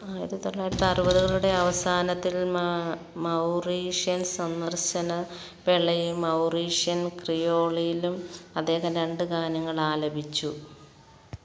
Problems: none marked